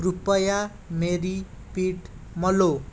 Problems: none marked